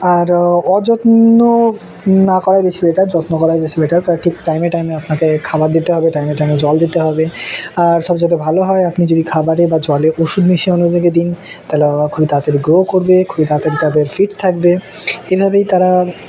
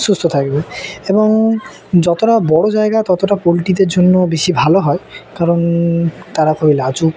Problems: constant background noise, continuous background conversations